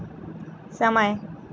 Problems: constant background noise